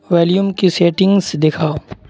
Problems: none marked